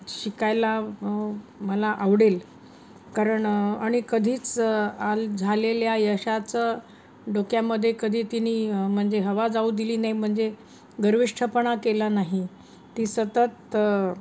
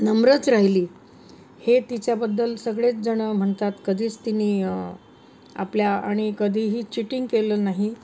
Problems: constant background noise